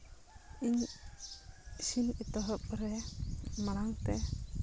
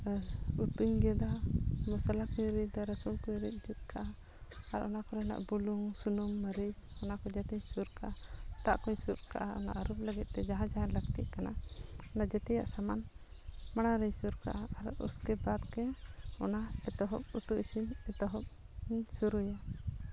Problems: none marked